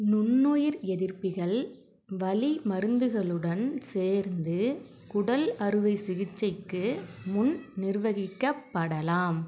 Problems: background conversations at intervals